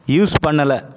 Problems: constant background noise